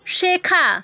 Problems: background conversations at intervals